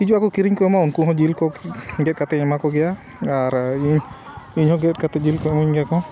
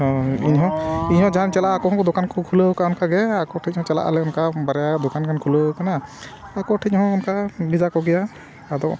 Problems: constant background noise